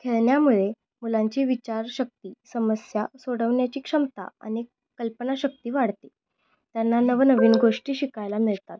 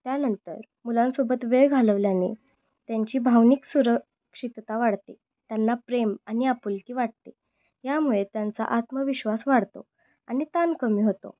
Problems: none marked